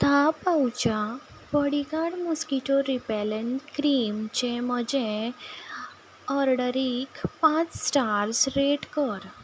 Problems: background sounds at intervals